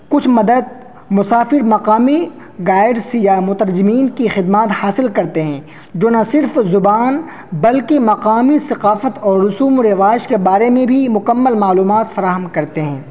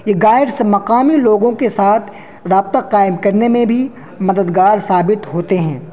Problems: constant background noise